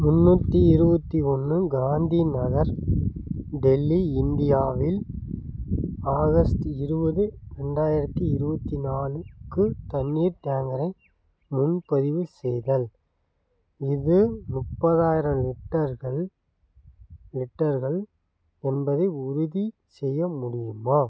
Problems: none marked